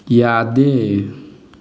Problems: none marked